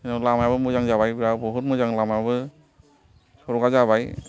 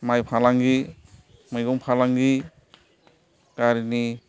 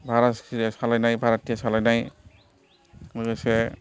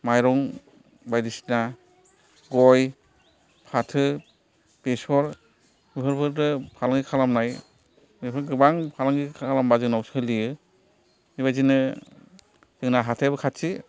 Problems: background sounds at intervals, continuous background conversations